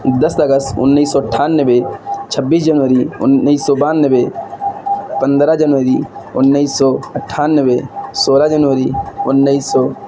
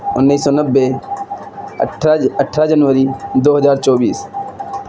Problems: constant background noise